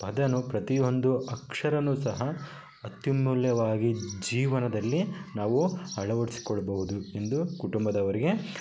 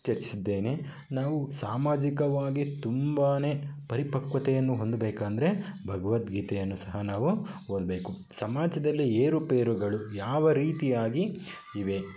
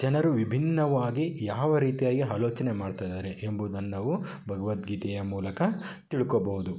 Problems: constant background noise